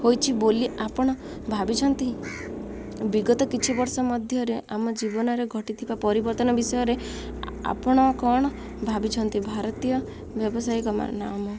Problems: constant background noise